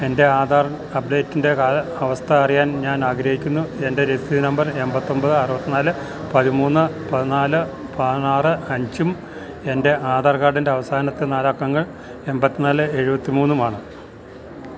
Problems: none marked